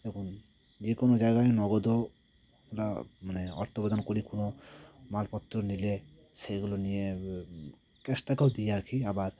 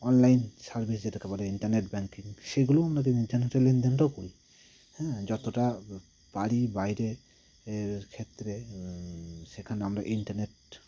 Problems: none marked